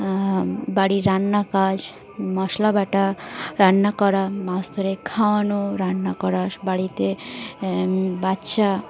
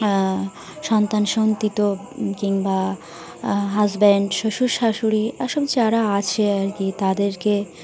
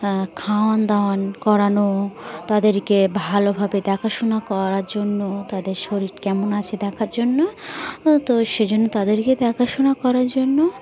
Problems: constant background noise, continuous background conversations